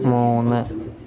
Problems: background sounds at intervals, low volume